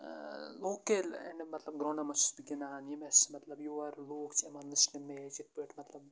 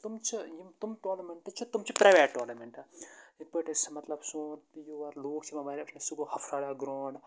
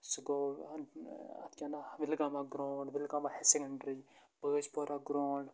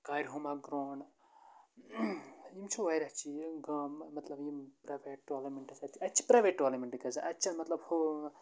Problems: constant background noise, low volume